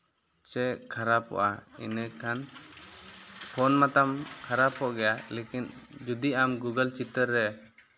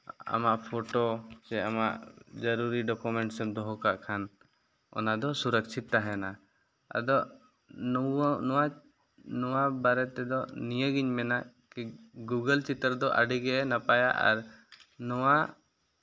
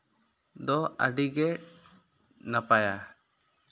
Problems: none marked